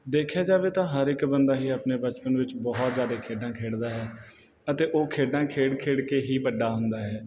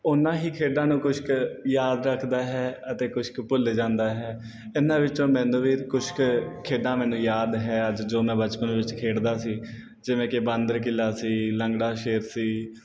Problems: none marked